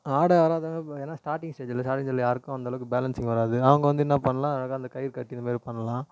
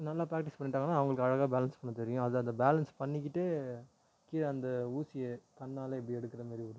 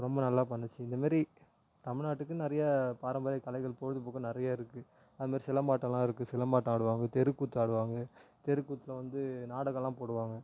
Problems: low volume